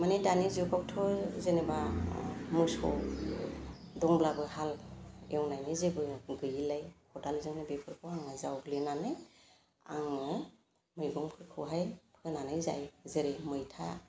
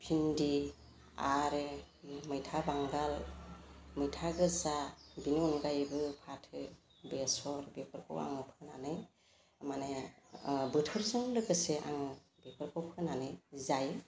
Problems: constant background noise